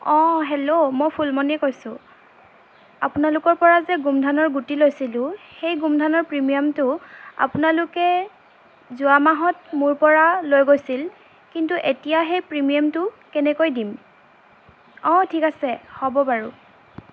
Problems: constant background noise